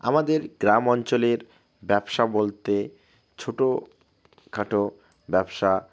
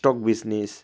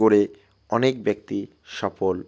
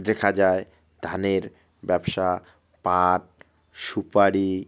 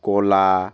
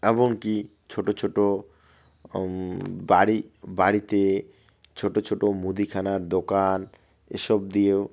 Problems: none marked